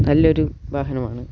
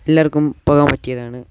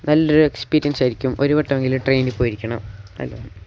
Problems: background sounds at intervals